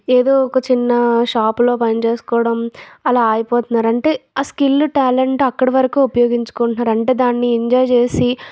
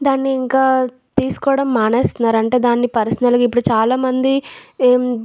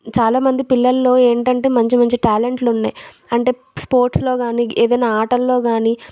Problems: none marked